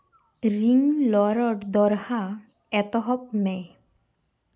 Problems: background sounds at intervals, echo